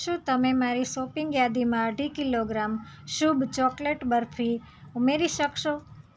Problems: none marked